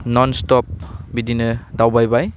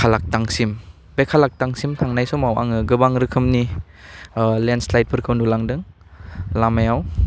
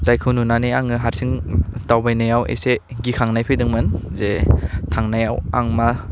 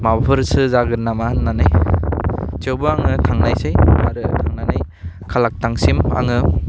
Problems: low volume